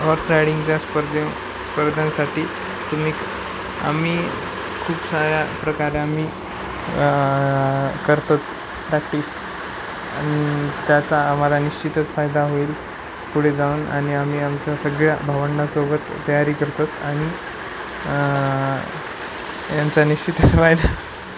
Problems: none marked